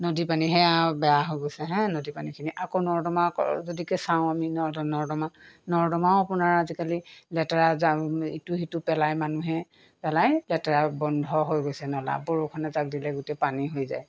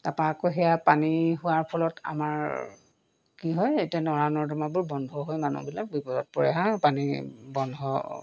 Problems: background sounds at intervals